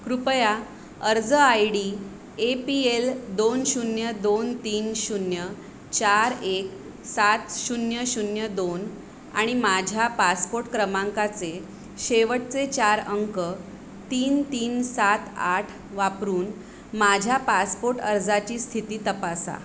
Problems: constant background noise